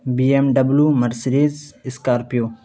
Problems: constant background noise